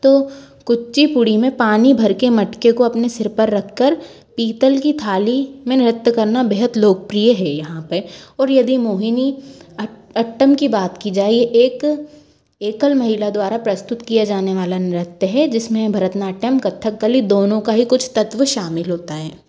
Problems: constant background noise, background conversations at intervals